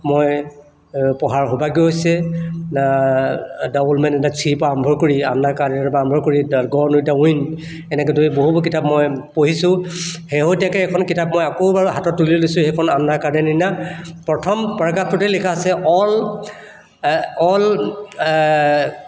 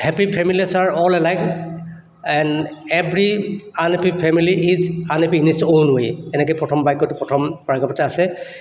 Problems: none marked